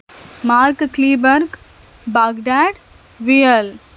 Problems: none marked